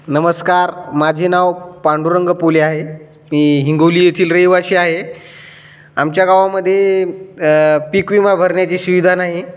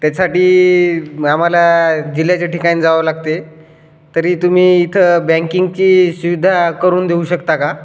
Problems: constant background noise, echo